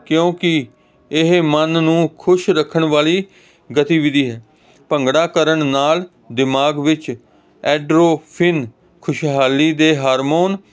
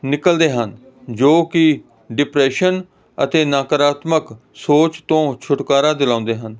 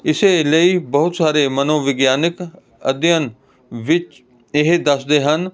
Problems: constant background noise